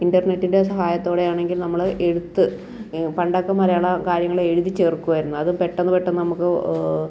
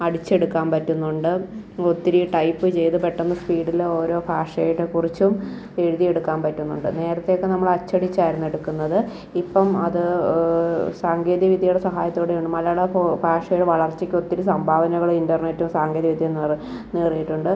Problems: background sounds at intervals